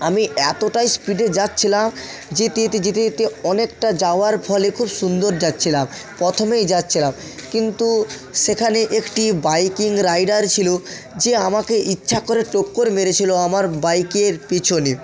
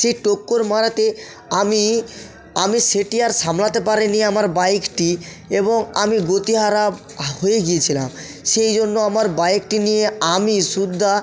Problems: continuous background conversations, echo